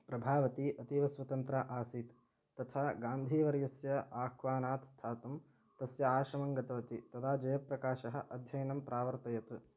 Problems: low volume